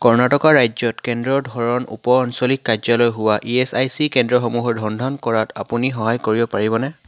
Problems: none marked